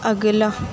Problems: constant background noise